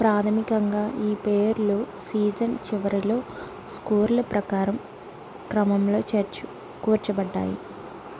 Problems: constant background noise